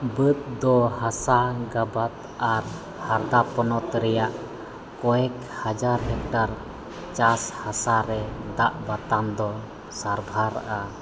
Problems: constant background noise, background conversations at intervals